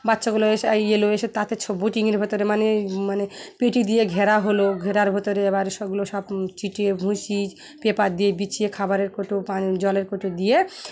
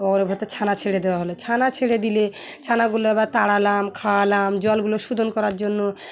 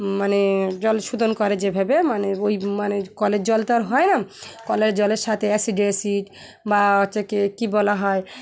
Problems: constant background noise, continuous background conversations